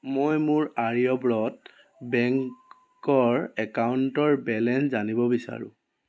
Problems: background sounds at intervals